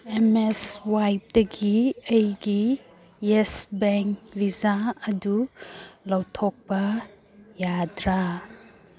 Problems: background sounds at intervals